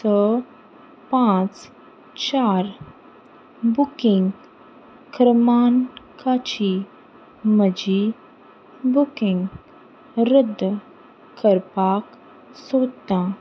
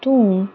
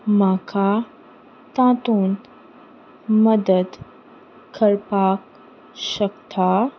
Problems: constant background noise